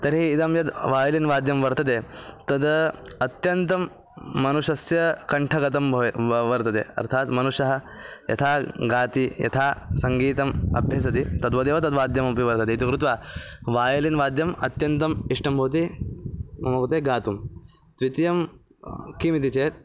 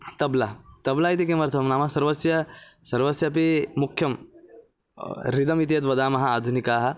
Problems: background conversations at intervals